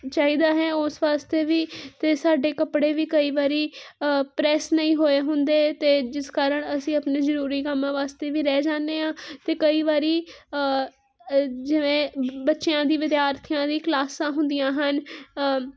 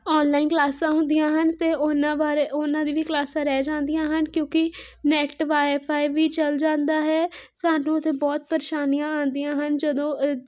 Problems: constant background noise